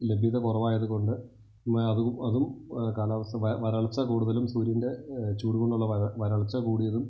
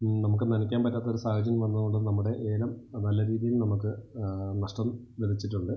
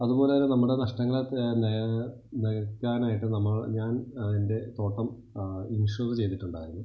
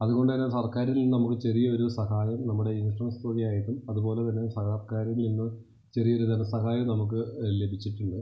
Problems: low volume